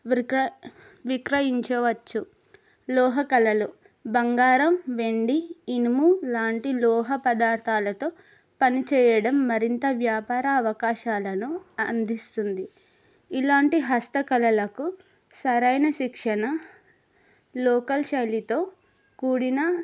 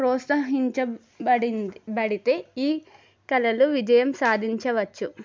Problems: none marked